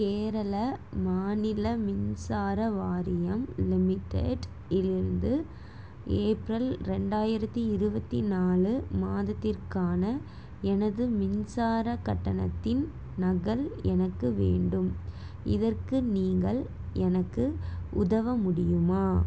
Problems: none marked